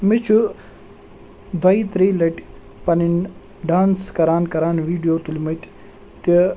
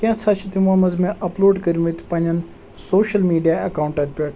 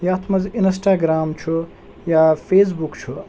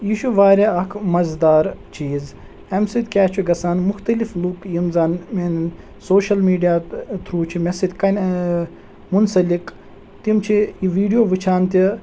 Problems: none marked